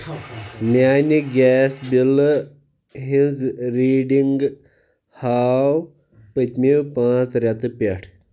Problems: constant background noise